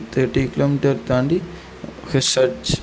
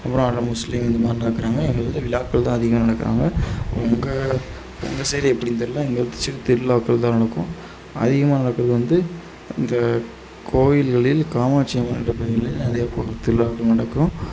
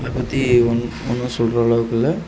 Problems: constant background noise